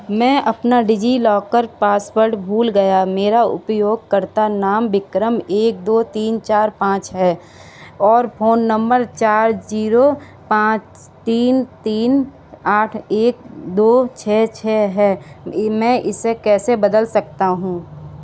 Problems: none marked